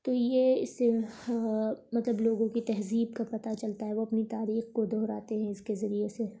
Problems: none marked